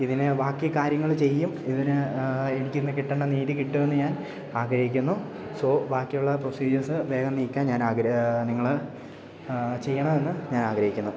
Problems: none marked